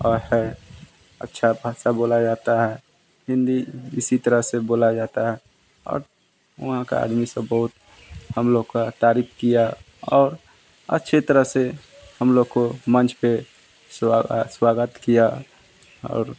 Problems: constant background noise